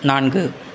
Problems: none marked